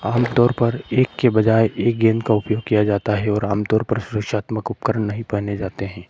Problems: background sounds at intervals